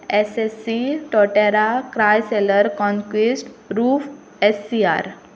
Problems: background sounds at intervals